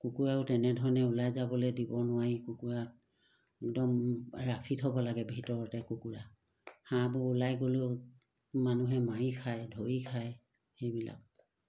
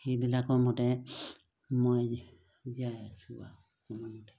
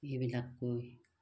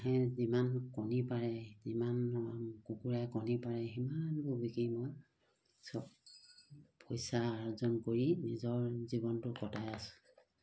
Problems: background sounds at intervals